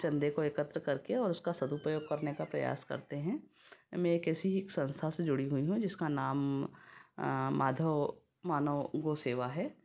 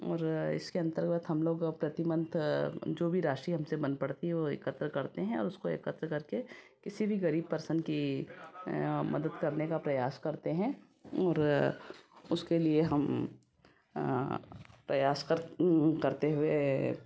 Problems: background conversations at intervals